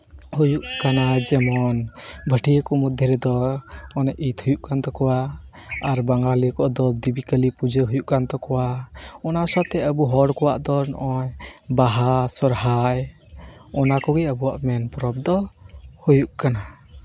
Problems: constant background noise